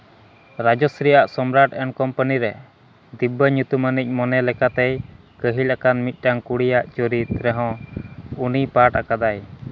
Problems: constant background noise